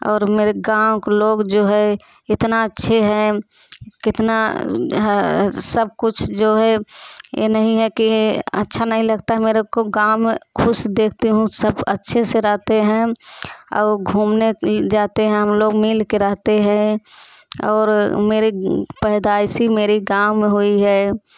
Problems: none marked